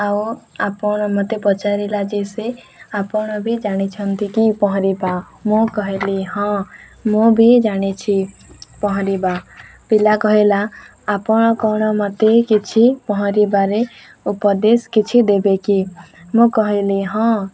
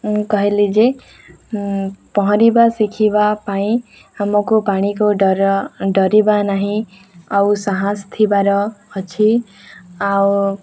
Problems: background conversations at intervals